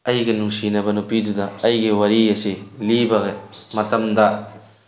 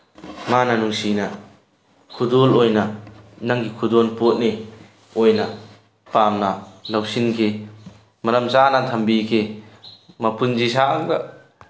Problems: none marked